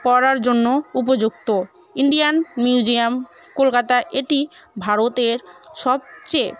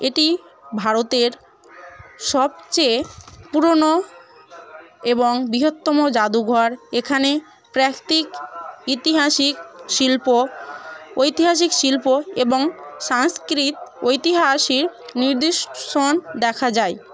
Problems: constant background noise, continuous background conversations